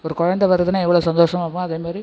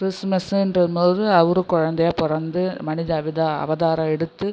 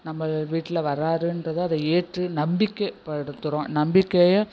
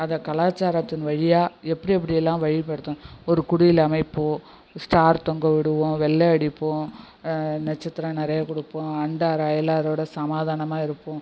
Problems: constant background noise, low volume